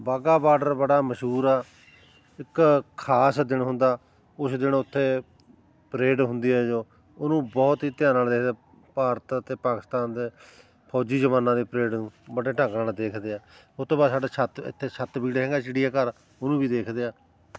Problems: constant background noise, continuous background conversations